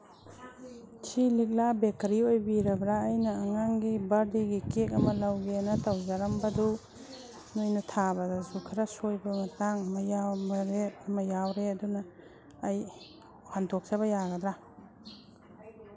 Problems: background sounds at intervals